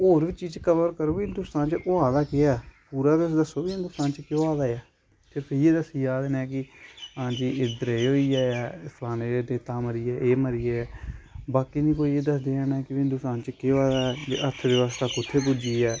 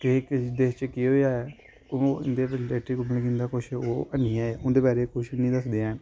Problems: constant background noise